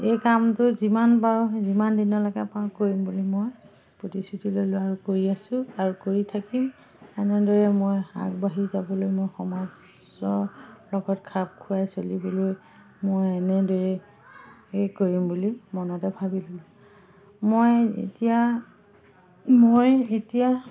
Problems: none marked